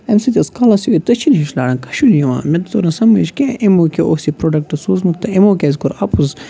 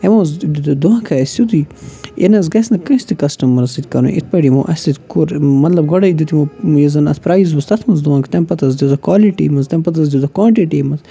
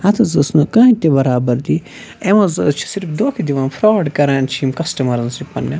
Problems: constant background noise